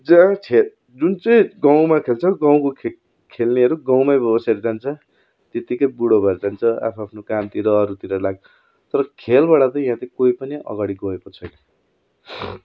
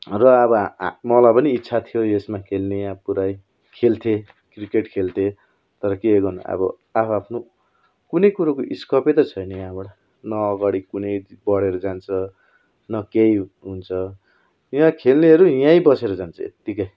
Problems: none marked